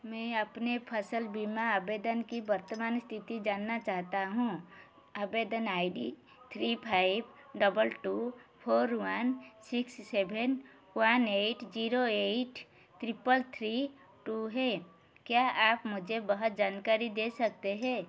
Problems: none marked